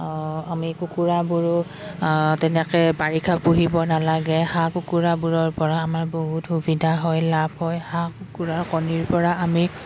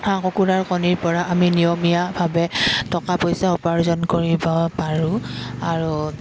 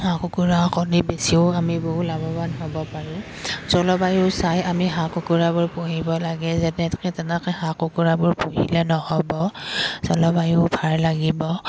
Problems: background sounds at intervals